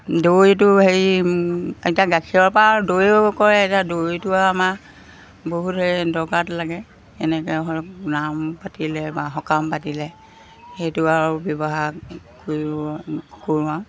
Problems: background sounds at intervals